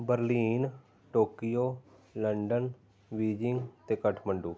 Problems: background conversations at intervals